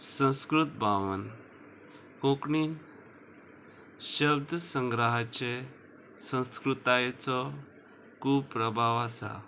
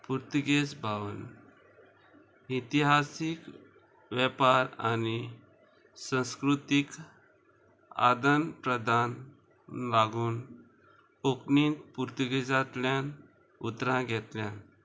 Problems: constant background noise